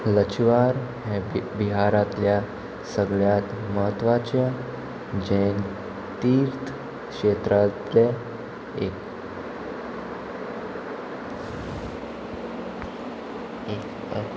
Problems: constant background noise